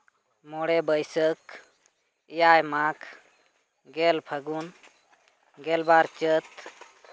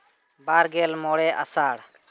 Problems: constant background noise